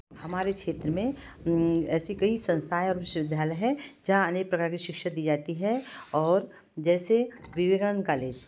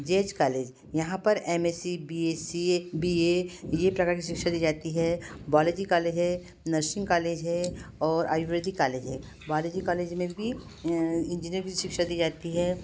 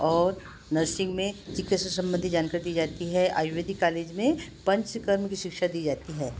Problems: constant background noise